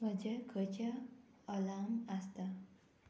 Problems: none marked